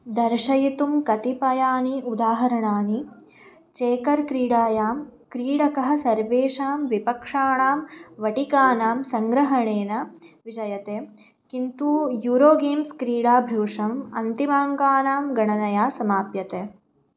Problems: none marked